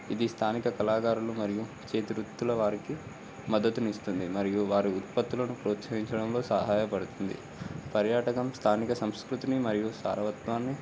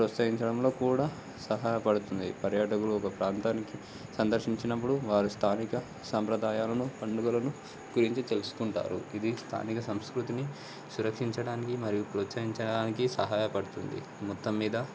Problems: constant background noise